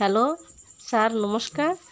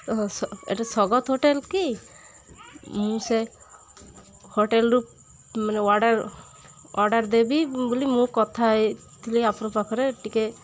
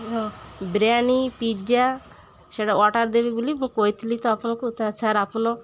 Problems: constant background noise, continuous background conversations